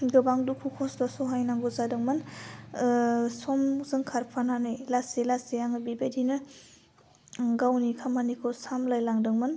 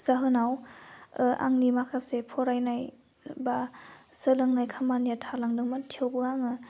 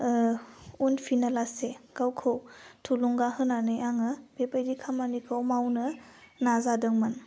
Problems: none marked